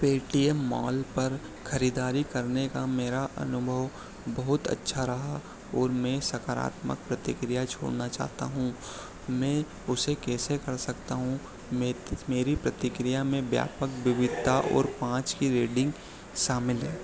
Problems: none marked